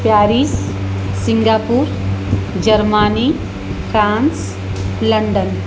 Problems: constant background noise